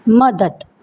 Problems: background sounds at intervals